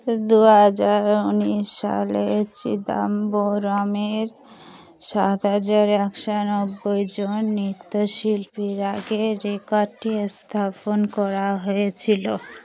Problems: background sounds at intervals, background conversations at intervals